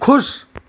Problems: none marked